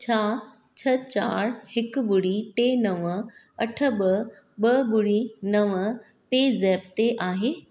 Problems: none marked